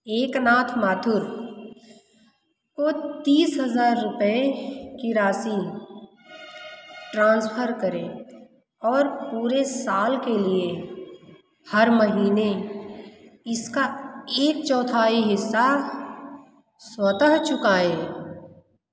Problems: none marked